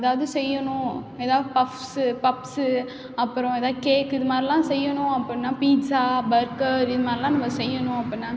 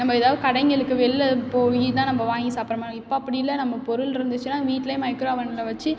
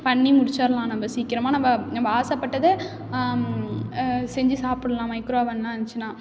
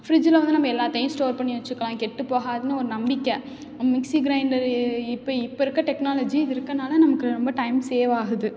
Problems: background sounds at intervals